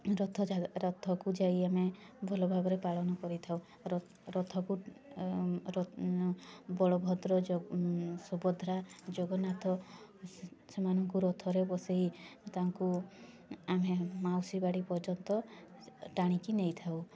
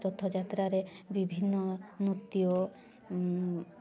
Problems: constant background noise, continuous background conversations